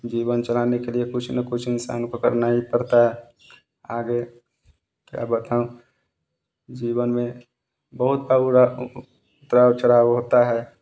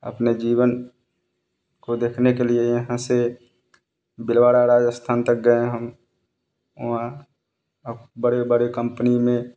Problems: constant background noise